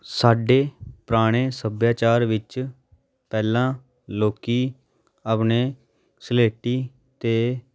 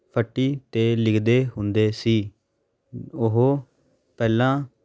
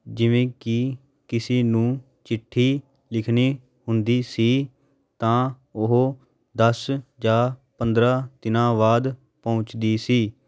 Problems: background sounds at intervals